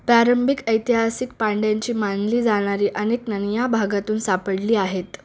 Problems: none marked